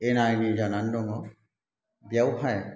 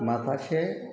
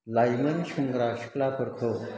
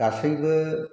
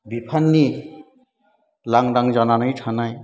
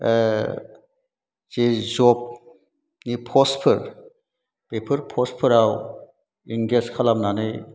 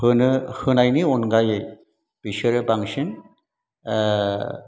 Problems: background sounds at intervals